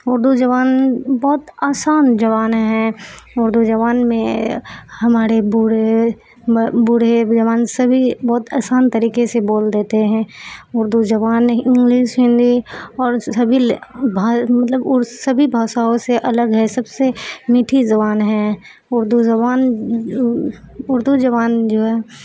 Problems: background sounds at intervals, background conversations at intervals